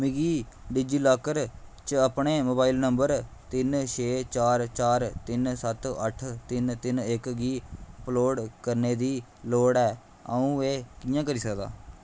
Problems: constant background noise